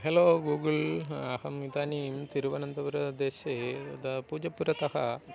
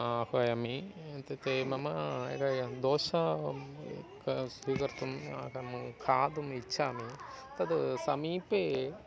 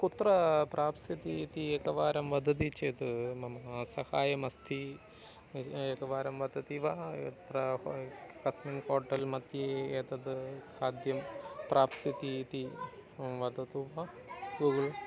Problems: none marked